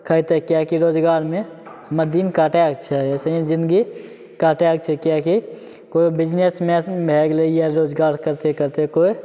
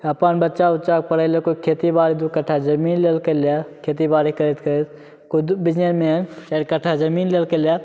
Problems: none marked